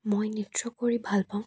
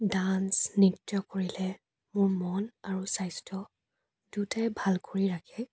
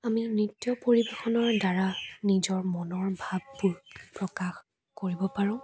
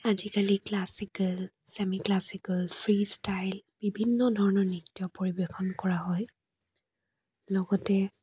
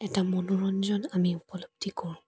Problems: none marked